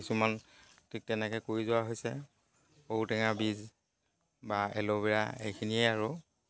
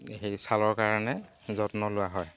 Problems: constant background noise